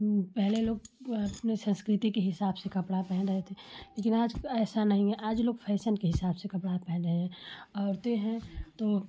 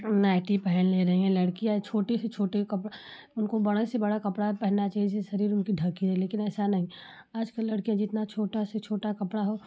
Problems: background sounds at intervals